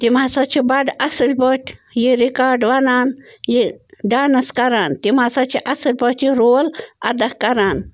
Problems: constant background noise